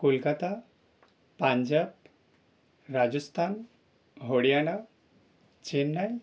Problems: none marked